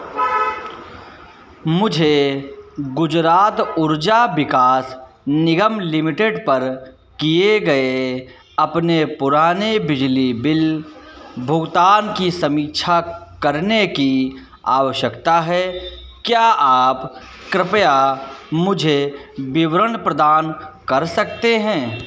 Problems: none marked